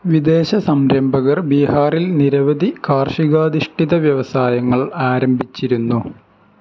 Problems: none marked